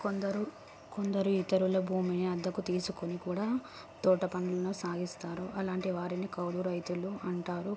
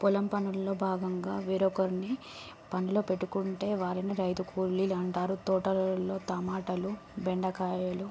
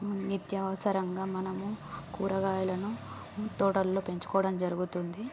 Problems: background sounds at intervals